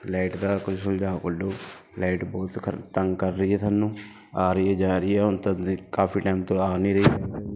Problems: background sounds at intervals